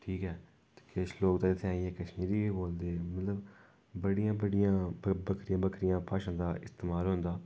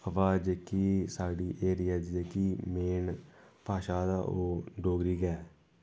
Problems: constant background noise